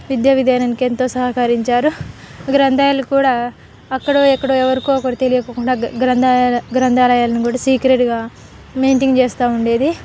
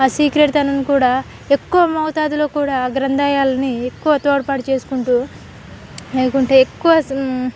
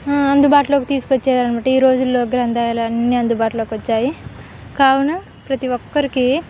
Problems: constant background noise, background conversations at intervals